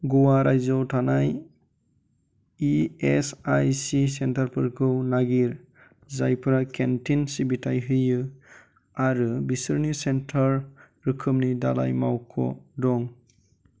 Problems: constant background noise